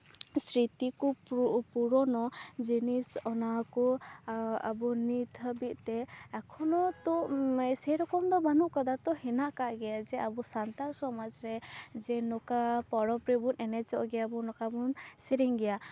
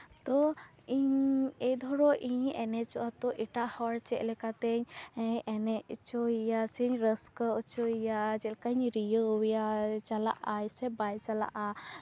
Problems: none marked